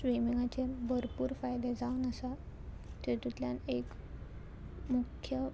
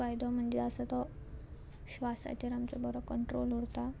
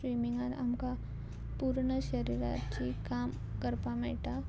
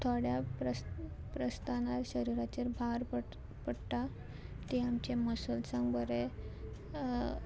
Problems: constant background noise